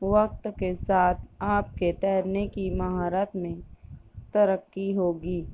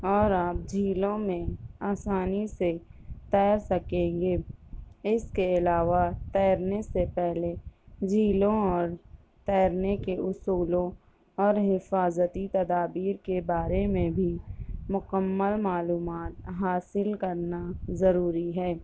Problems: none marked